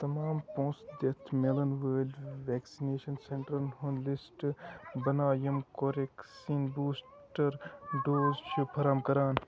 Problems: constant background noise, continuous background conversations, low volume